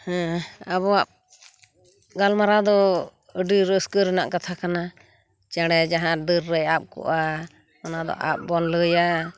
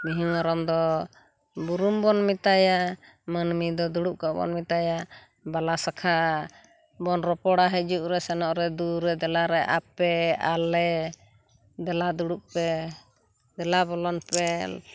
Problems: none marked